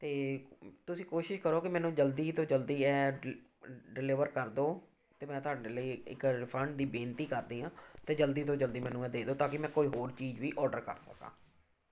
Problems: none marked